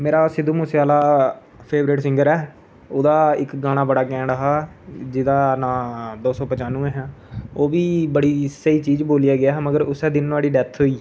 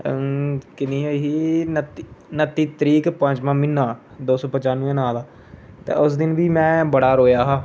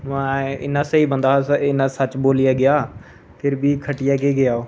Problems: constant background noise